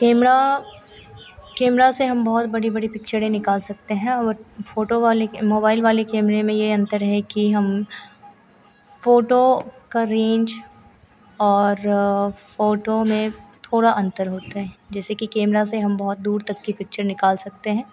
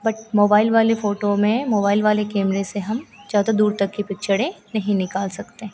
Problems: none marked